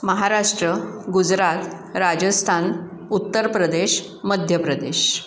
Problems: none marked